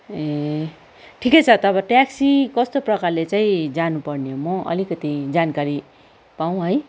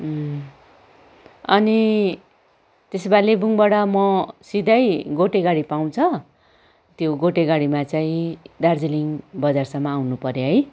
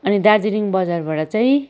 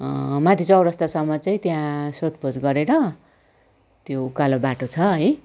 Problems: background sounds at intervals, background conversations at intervals